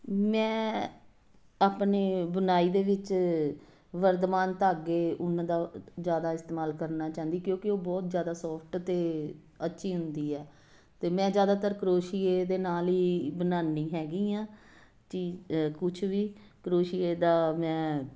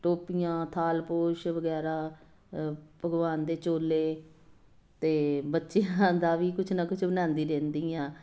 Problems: constant background noise